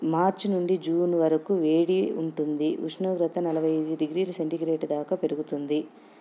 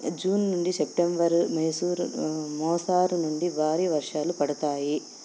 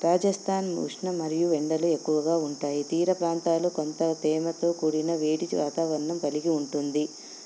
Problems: none marked